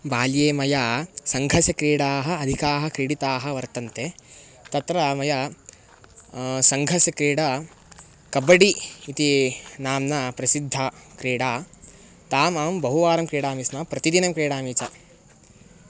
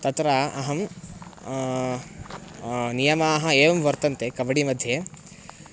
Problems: background sounds at intervals